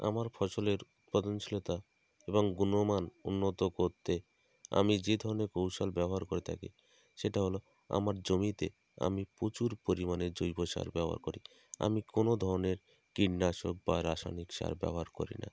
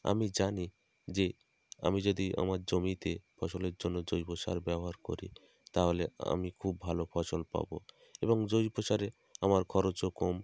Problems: none marked